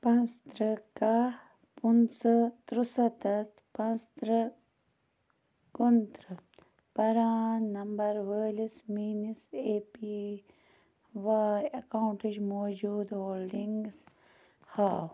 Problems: background sounds at intervals